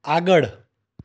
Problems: none marked